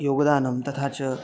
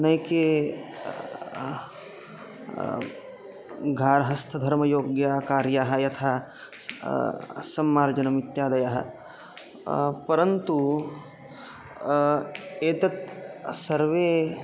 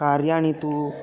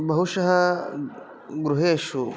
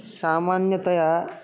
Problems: constant background noise